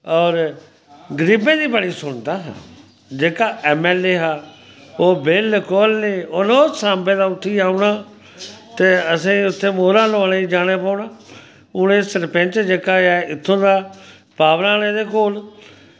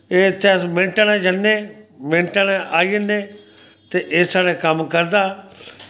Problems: constant background noise